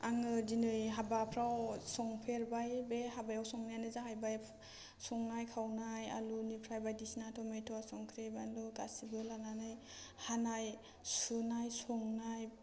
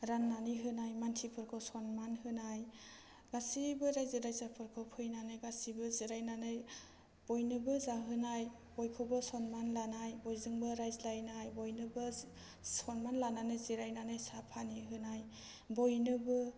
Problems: low volume